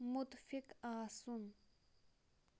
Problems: none marked